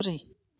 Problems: none marked